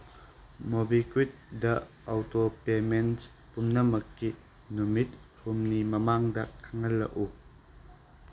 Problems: constant background noise